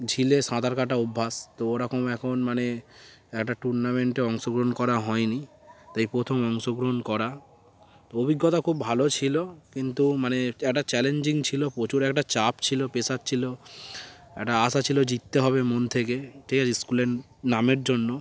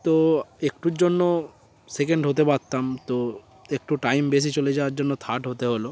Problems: background sounds at intervals